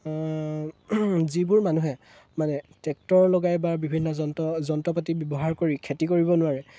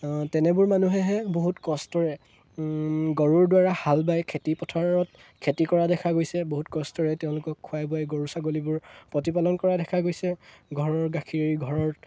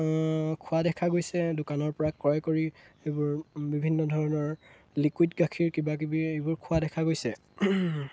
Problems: none marked